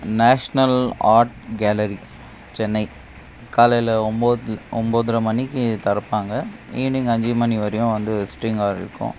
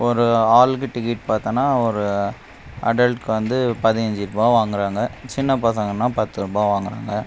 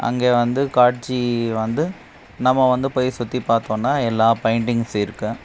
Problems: background sounds at intervals